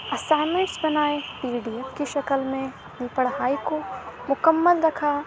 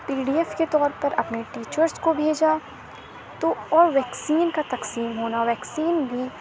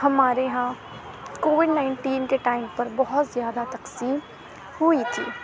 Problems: constant background noise